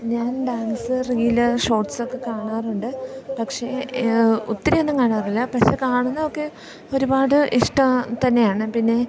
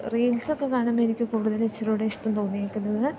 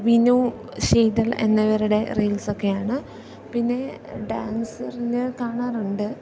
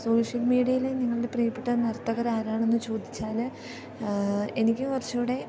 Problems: constant background noise, low volume